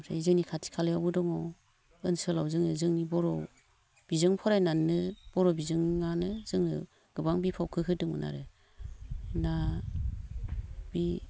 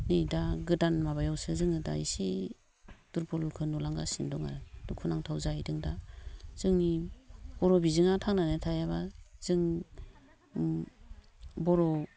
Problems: low volume